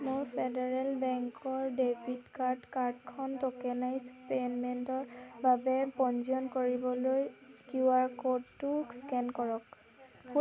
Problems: none marked